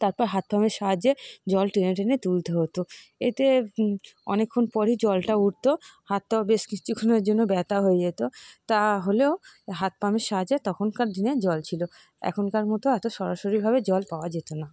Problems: none marked